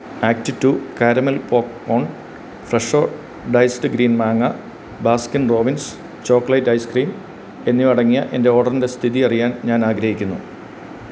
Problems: constant background noise